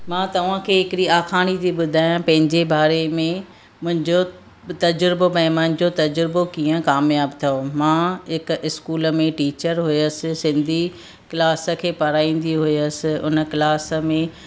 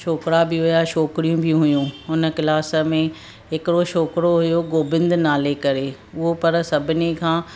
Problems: constant background noise